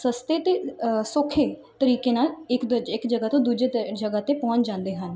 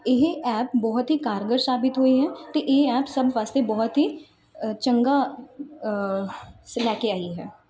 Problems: none marked